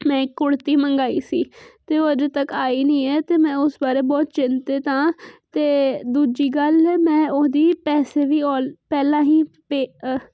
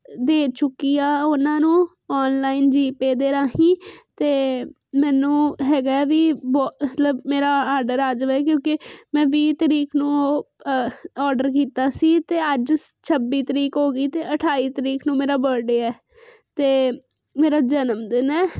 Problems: constant background noise